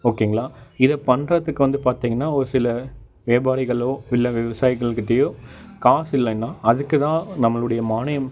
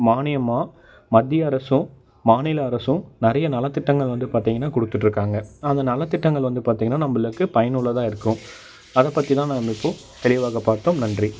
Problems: none marked